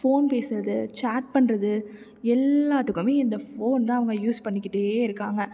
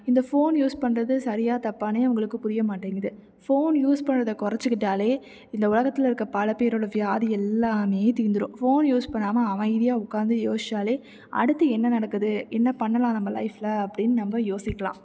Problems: none marked